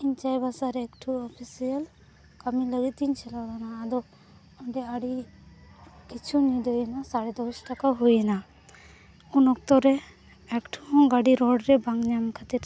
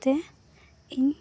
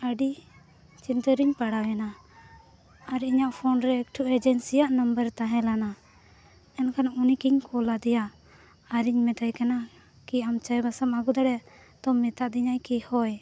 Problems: background sounds at intervals, background conversations at intervals